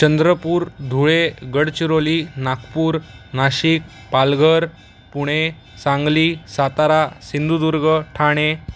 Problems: constant background noise